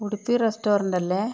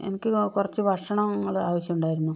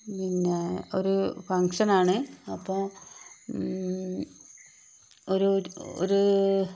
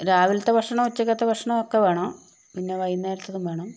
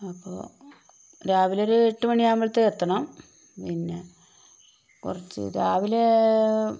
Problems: constant background noise